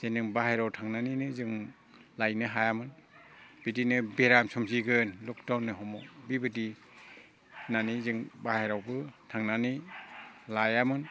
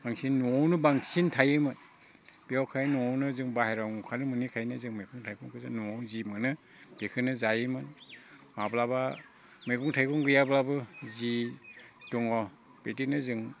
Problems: constant background noise